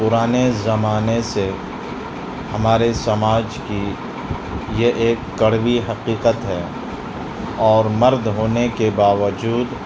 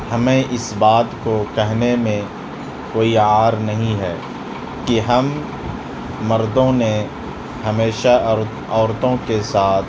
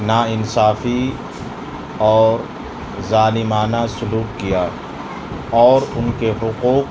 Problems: constant background noise, background conversations at intervals, low volume